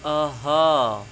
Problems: constant background noise